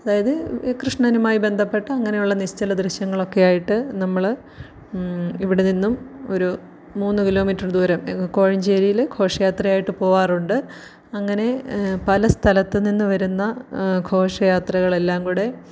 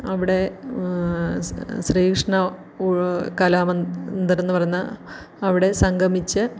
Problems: none marked